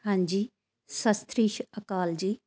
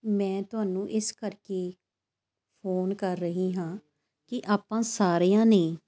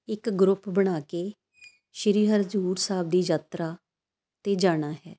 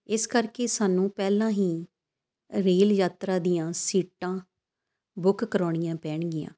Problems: constant background noise